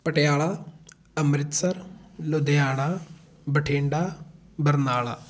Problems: background conversations at intervals